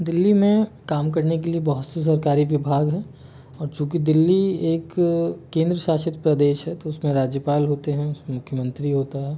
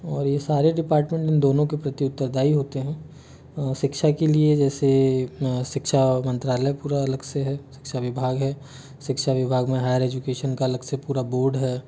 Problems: background sounds at intervals